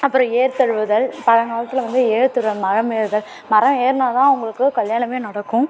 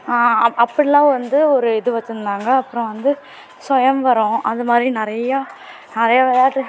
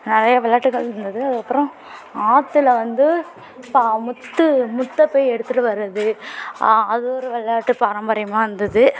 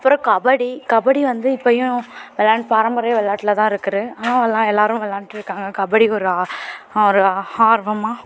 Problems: continuous background conversations